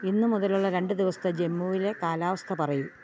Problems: background sounds at intervals